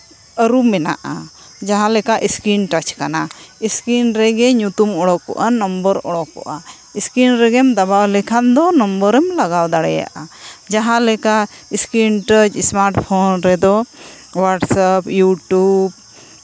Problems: constant background noise